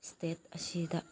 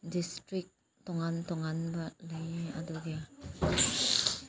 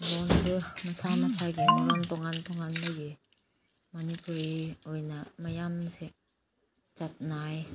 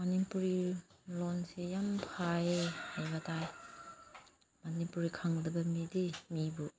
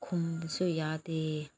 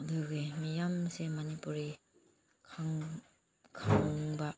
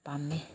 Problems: low volume